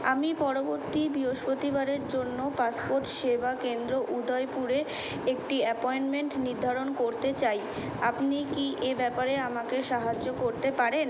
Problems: constant background noise